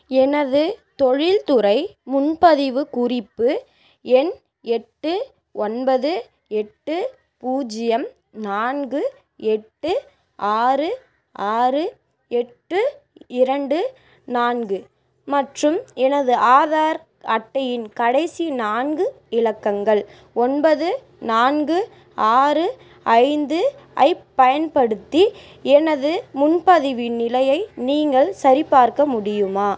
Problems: none marked